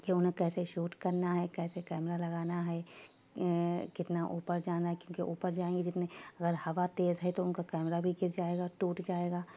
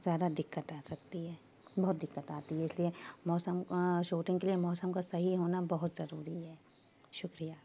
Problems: constant background noise, low volume